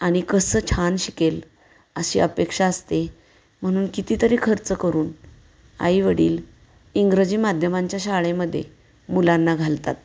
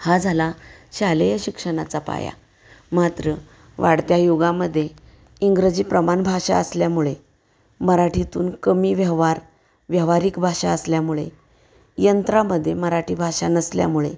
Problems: background sounds at intervals